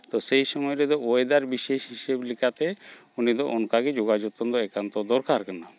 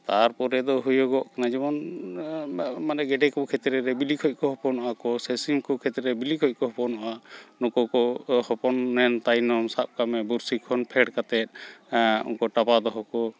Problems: constant background noise, background conversations at intervals